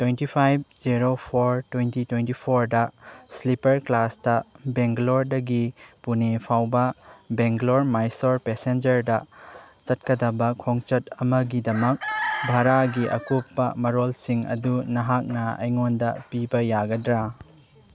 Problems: background sounds at intervals